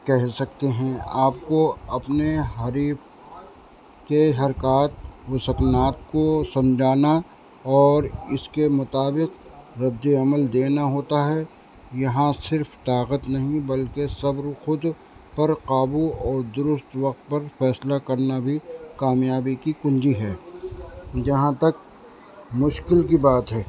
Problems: constant background noise